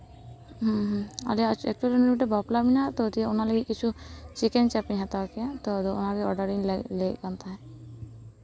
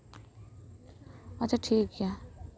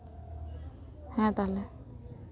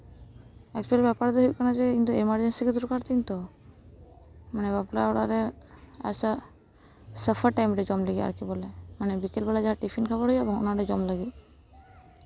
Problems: none marked